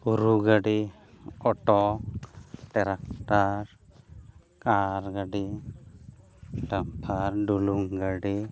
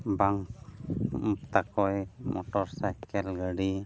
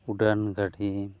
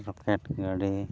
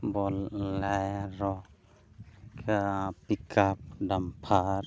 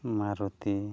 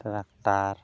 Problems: none marked